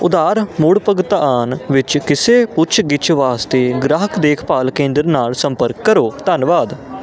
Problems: constant background noise